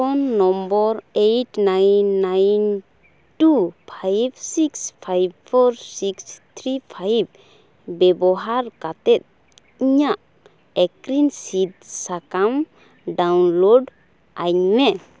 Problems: none marked